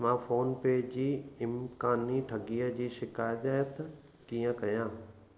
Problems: constant background noise, echo